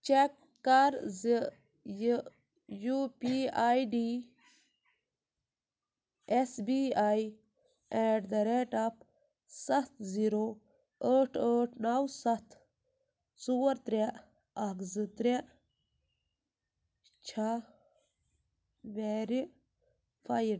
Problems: none marked